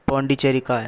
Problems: constant background noise